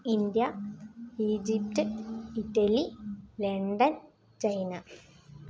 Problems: low volume